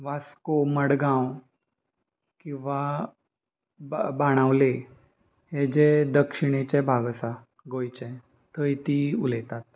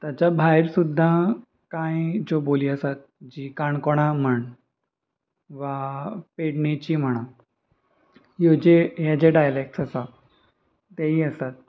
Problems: constant background noise